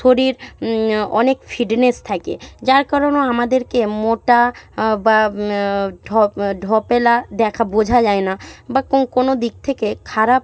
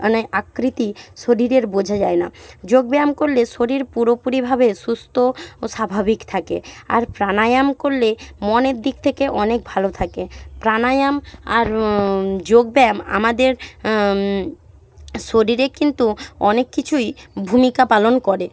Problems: none marked